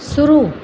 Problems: none marked